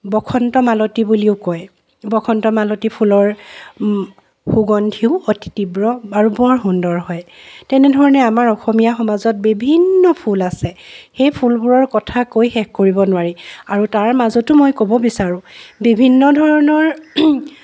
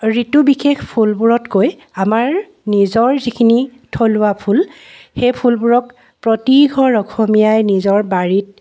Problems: constant background noise